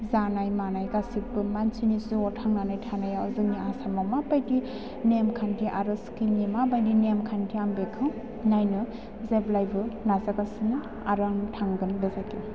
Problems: background sounds at intervals